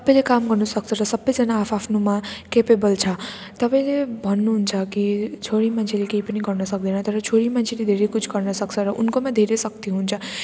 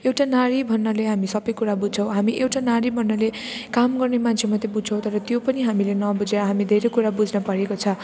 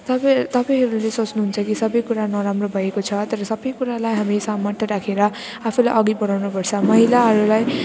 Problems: background sounds at intervals